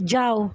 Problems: continuous background conversations